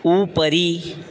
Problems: background sounds at intervals